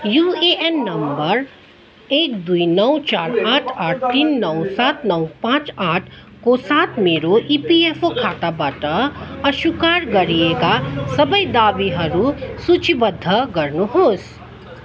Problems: constant background noise, continuous background conversations